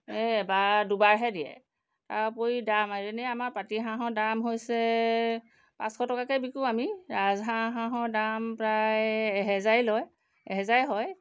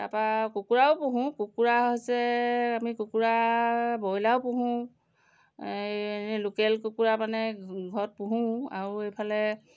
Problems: background sounds at intervals